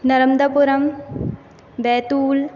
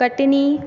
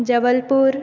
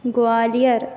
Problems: constant background noise, echo